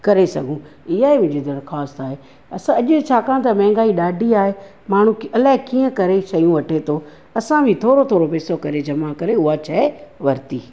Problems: none marked